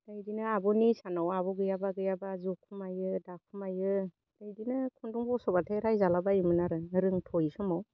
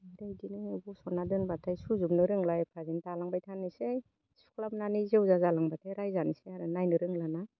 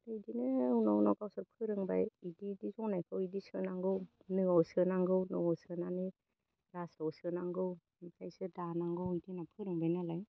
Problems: low volume